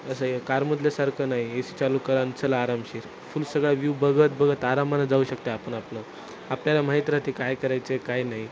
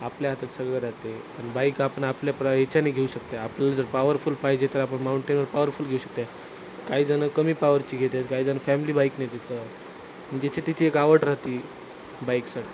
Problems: none marked